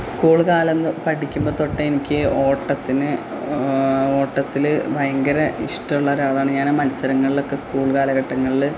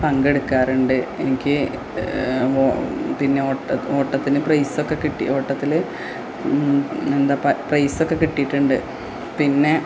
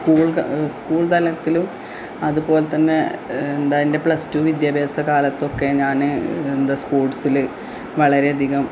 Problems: low volume